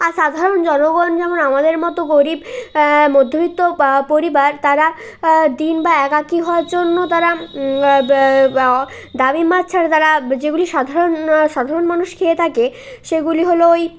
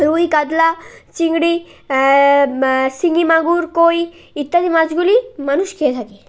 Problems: constant background noise